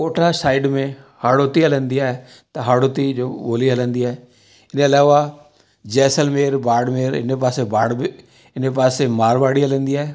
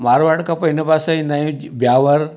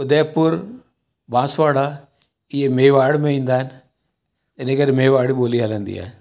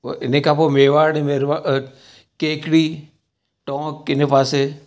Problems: background sounds at intervals, echo